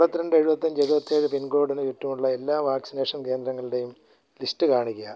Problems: low volume